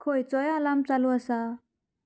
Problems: none marked